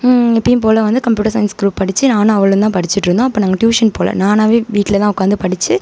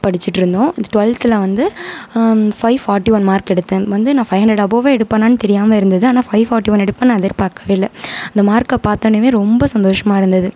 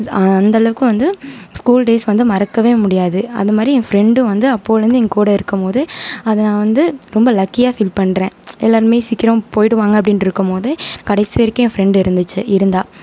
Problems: none marked